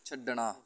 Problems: background conversations at intervals